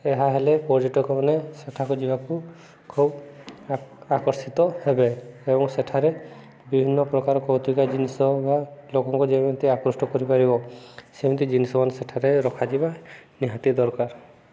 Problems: background sounds at intervals, background conversations at intervals